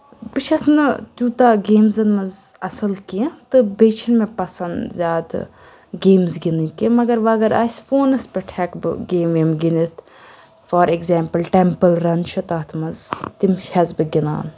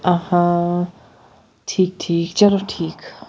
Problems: none marked